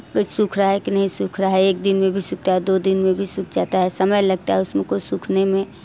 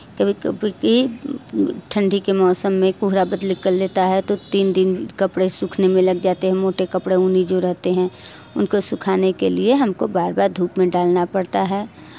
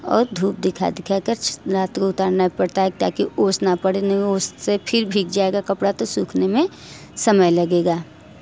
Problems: none marked